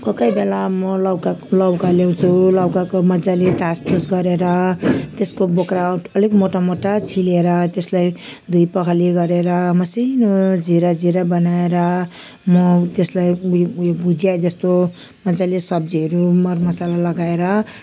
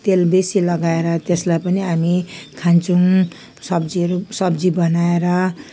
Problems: background sounds at intervals